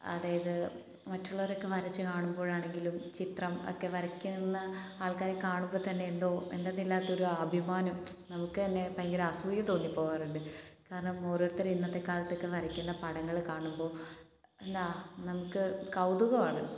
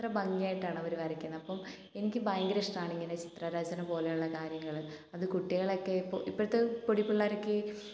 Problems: none marked